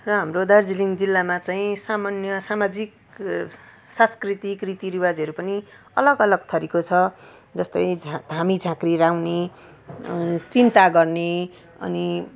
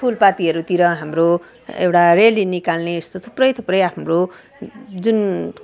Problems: background sounds at intervals